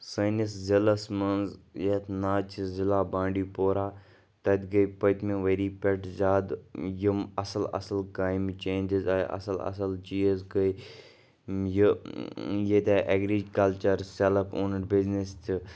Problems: background sounds at intervals, background conversations at intervals